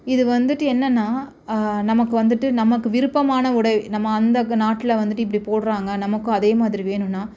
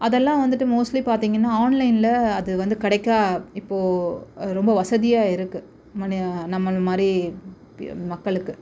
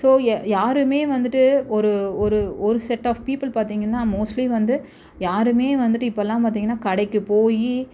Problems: none marked